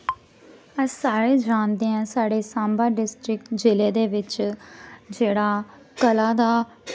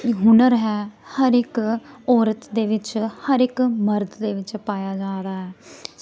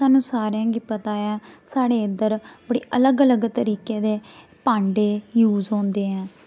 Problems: none marked